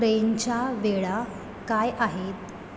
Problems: none marked